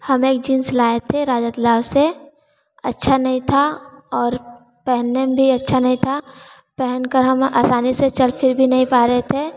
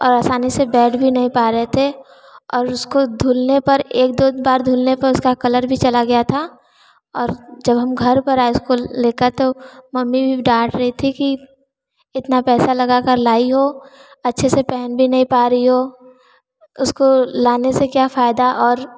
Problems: none marked